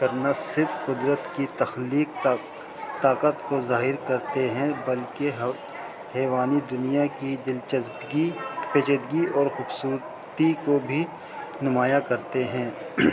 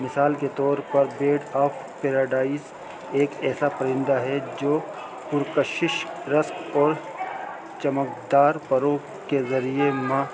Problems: constant background noise